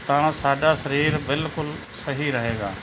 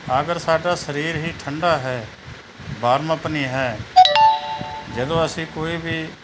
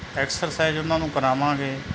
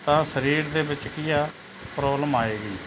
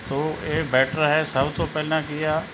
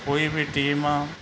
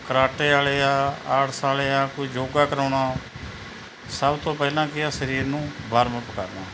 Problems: background sounds at intervals